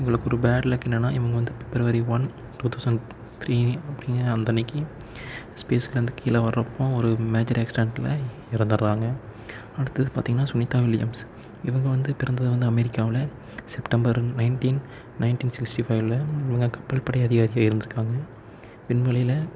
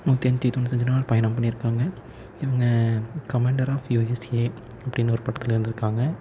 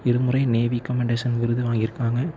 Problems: low volume